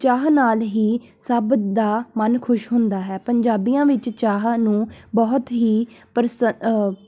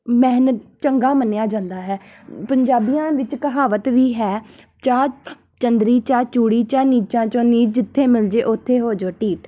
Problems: background sounds at intervals